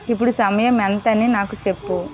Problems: continuous background conversations